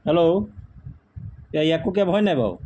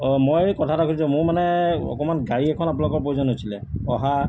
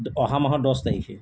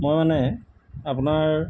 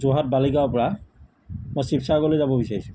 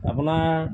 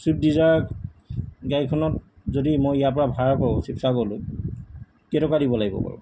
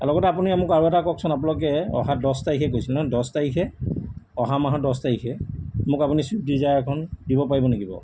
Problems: background sounds at intervals